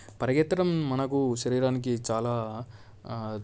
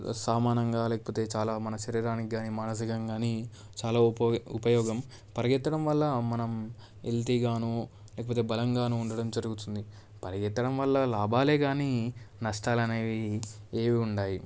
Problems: none marked